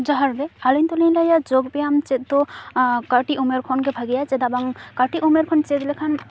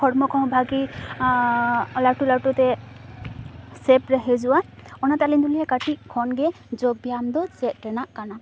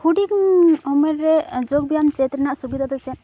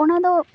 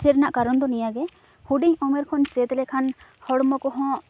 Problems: background sounds at intervals